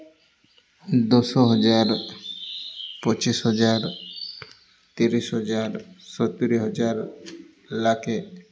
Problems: none marked